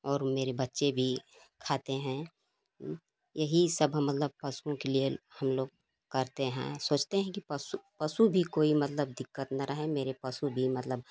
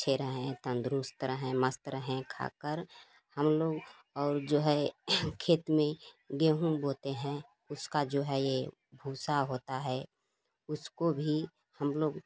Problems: constant background noise